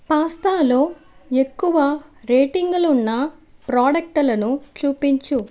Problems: none marked